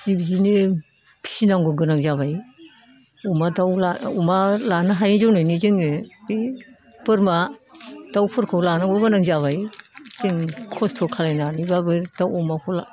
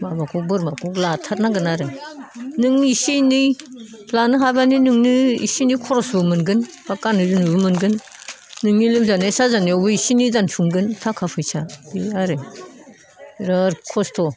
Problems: background conversations at intervals